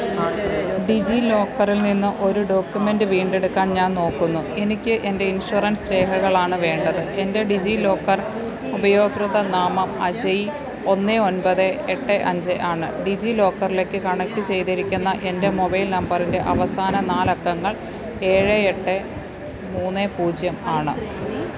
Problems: constant background noise